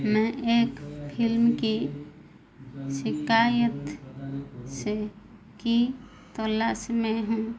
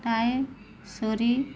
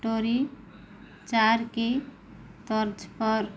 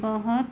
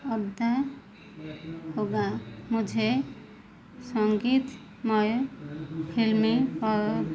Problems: constant background noise